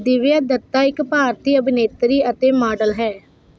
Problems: constant background noise